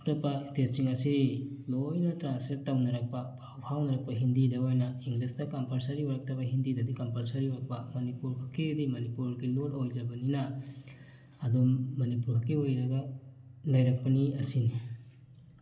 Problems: background sounds at intervals